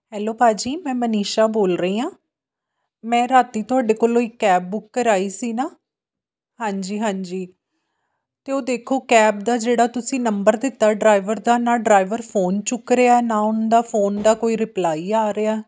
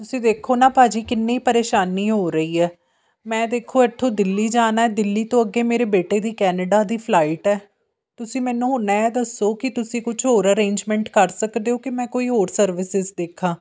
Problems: background sounds at intervals